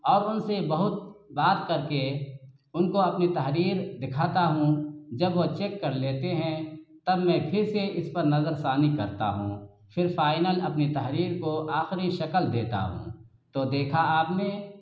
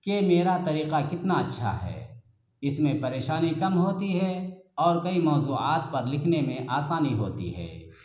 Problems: constant background noise